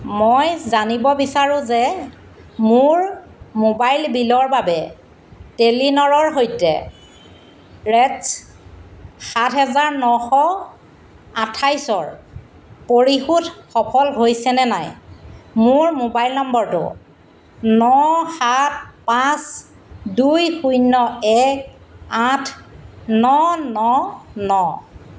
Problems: constant background noise